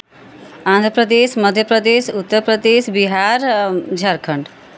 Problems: none marked